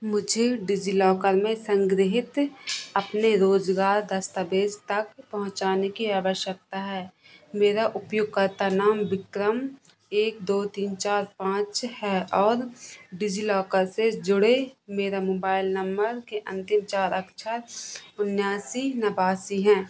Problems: constant background noise